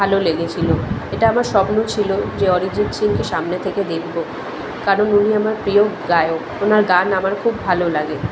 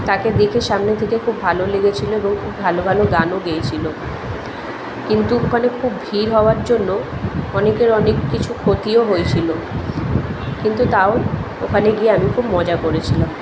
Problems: constant background noise, continuous background conversations